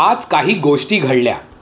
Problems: none marked